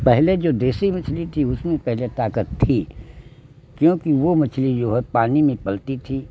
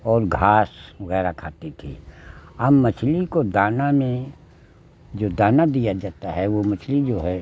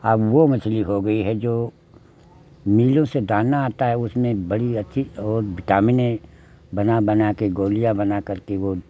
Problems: constant background noise